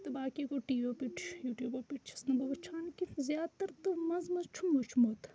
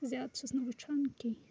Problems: constant background noise, background conversations at intervals